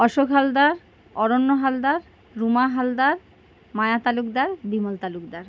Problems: none marked